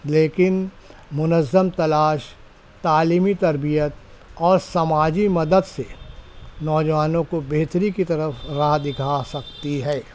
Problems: constant background noise